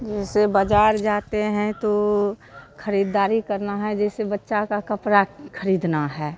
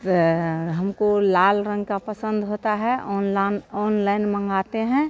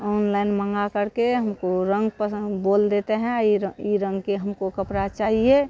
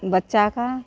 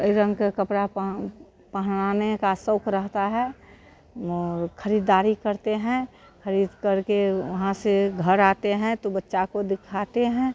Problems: constant background noise